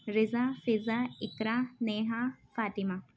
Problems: background sounds at intervals, low volume